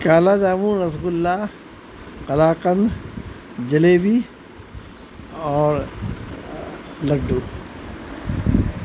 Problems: constant background noise